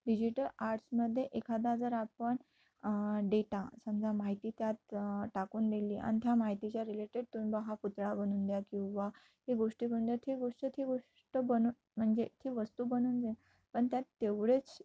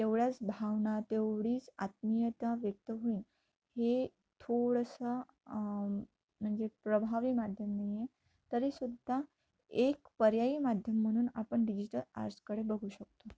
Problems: none marked